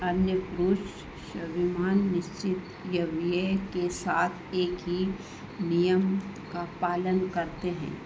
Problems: constant background noise